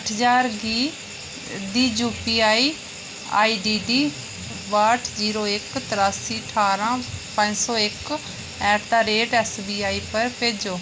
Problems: none marked